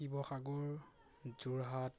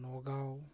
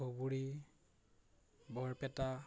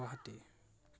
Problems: background sounds at intervals